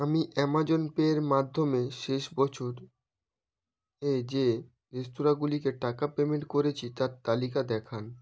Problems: none marked